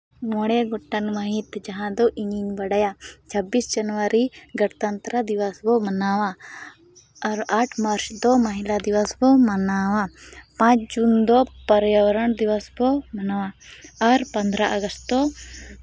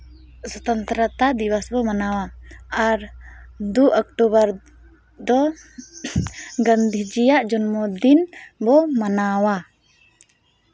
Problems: none marked